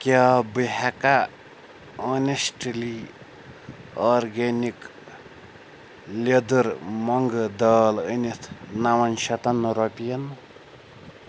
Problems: background sounds at intervals